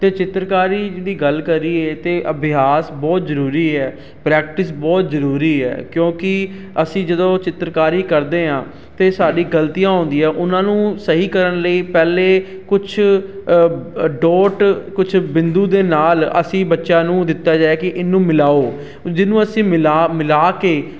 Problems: constant background noise